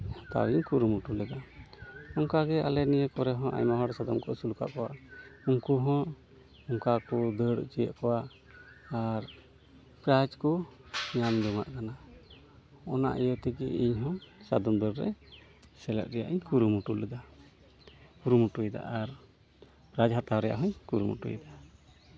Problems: background sounds at intervals, continuous background conversations